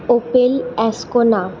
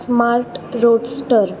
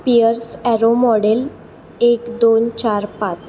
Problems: constant background noise